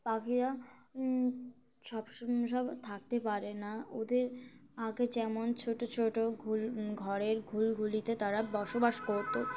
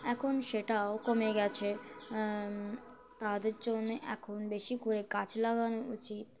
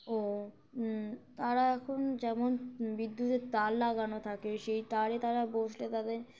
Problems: constant background noise